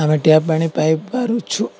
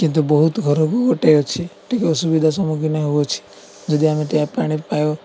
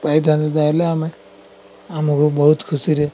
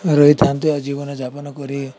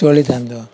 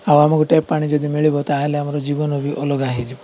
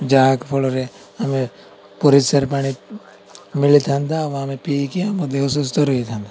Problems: constant background noise, continuous background conversations